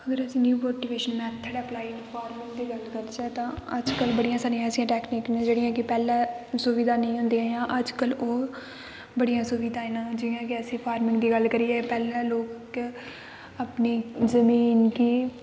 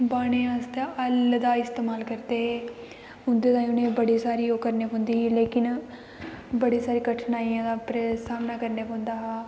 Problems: constant background noise, echo